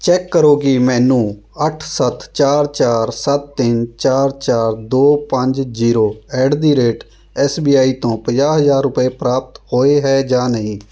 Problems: background sounds at intervals